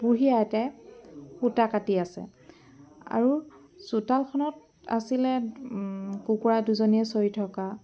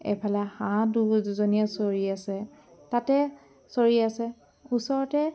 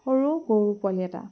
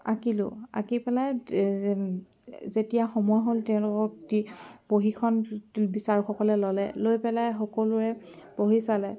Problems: background sounds at intervals, continuous background conversations